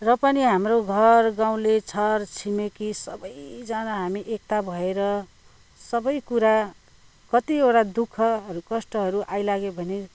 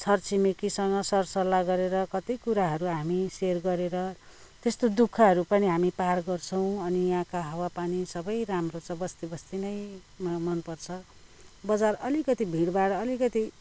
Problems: none marked